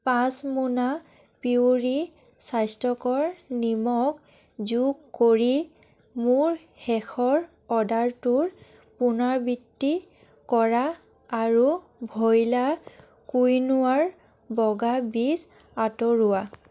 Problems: constant background noise, background conversations at intervals